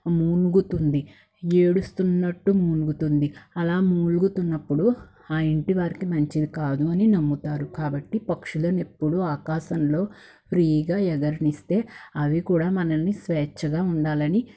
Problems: background sounds at intervals